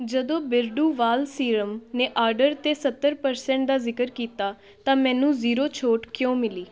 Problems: background conversations at intervals